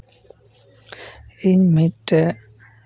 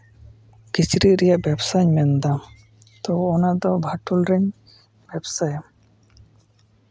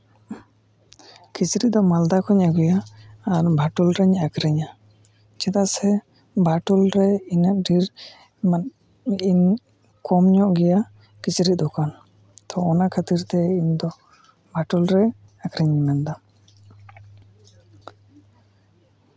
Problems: background sounds at intervals